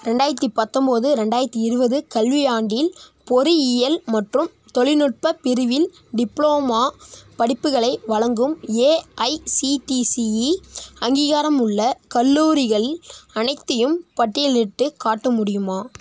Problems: none marked